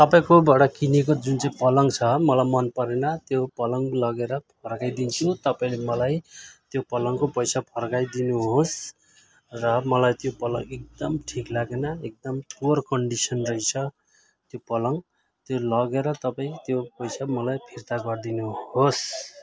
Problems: continuous background conversations